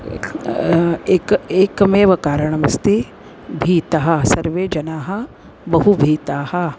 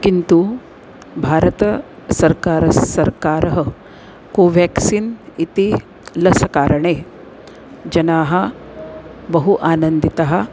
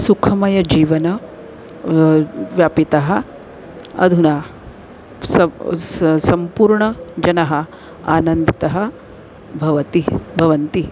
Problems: constant background noise